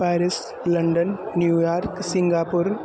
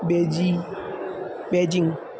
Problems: constant background noise